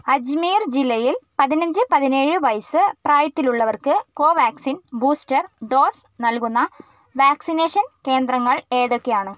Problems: none marked